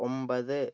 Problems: low volume